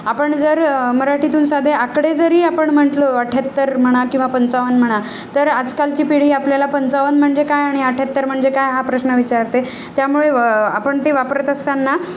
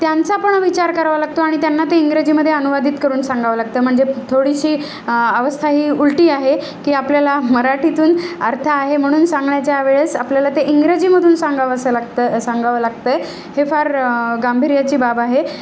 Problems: none marked